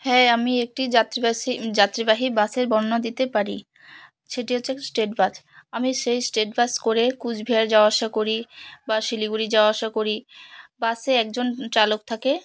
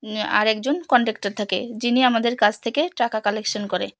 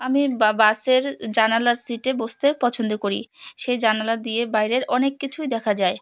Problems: background sounds at intervals, background conversations at intervals